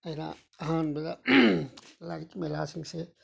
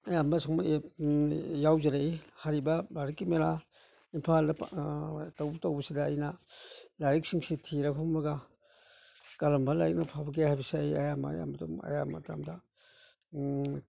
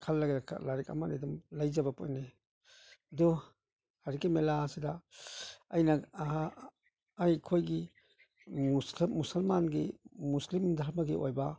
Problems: none marked